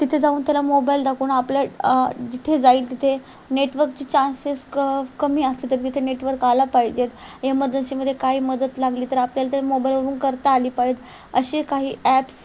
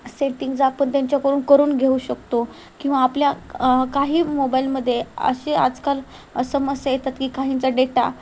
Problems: constant background noise